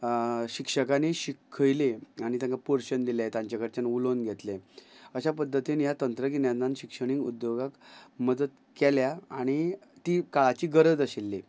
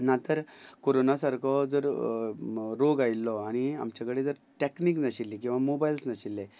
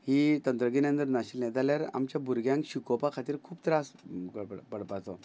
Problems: none marked